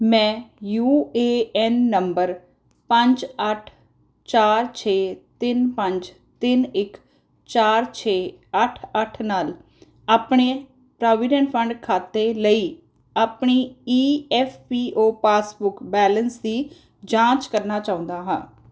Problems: none marked